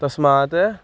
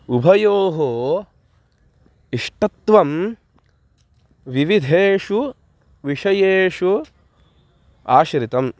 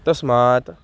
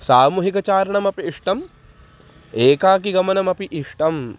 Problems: constant background noise, background conversations at intervals